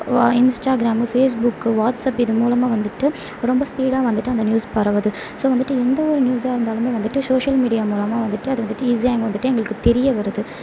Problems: background sounds at intervals, low volume